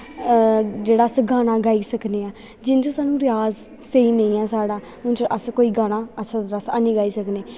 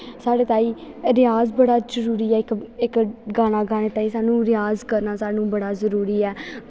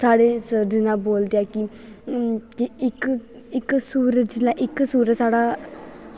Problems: constant background noise